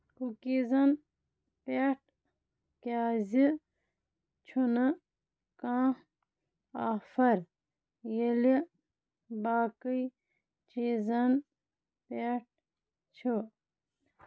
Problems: none marked